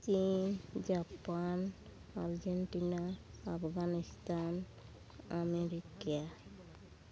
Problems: background sounds at intervals, background conversations at intervals